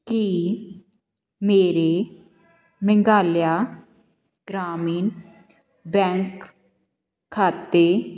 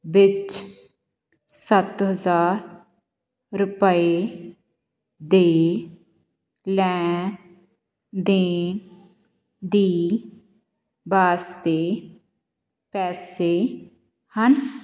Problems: background conversations at intervals